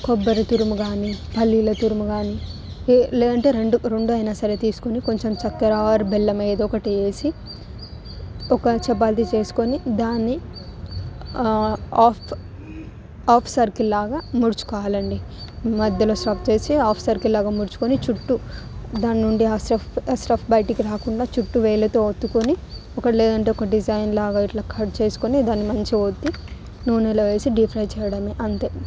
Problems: constant background noise